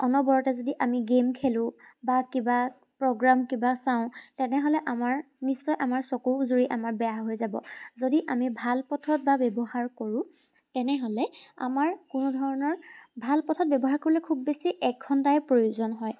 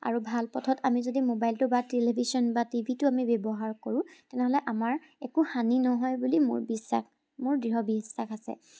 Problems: none marked